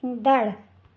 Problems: none marked